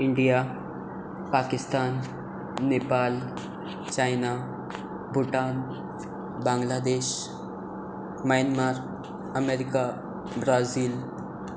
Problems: constant background noise